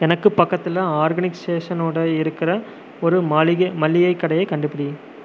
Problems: constant background noise